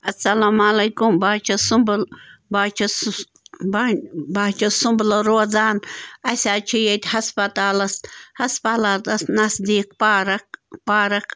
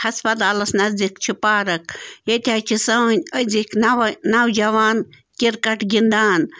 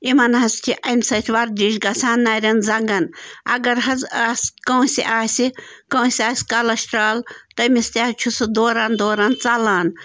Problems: constant background noise